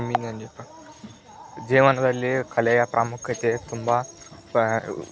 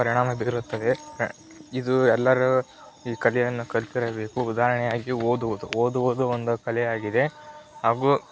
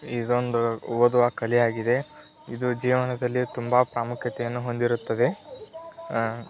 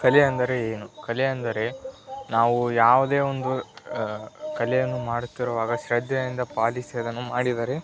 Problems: background sounds at intervals, continuous background conversations